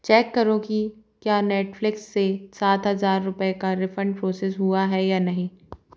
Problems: background sounds at intervals